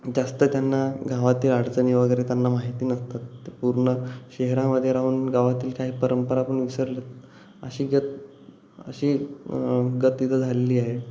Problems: none marked